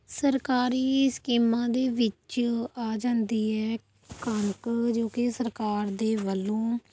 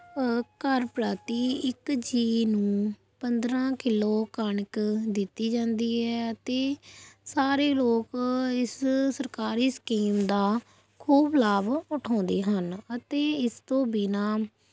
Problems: background sounds at intervals